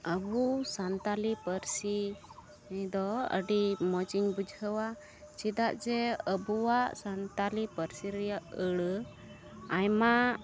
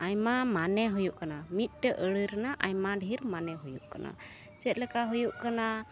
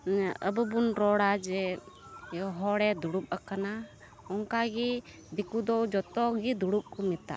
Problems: background sounds at intervals